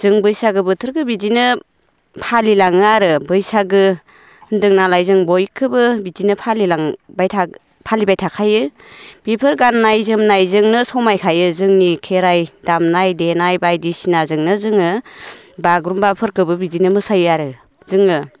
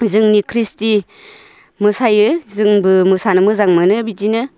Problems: none marked